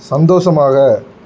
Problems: none marked